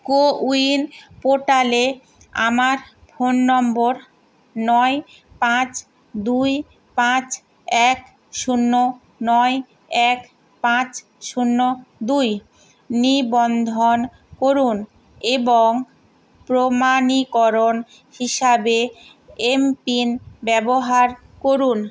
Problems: constant background noise